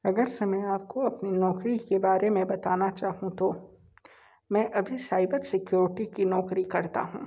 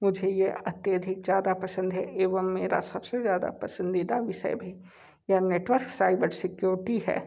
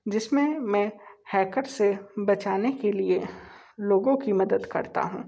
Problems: constant background noise